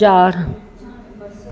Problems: constant background noise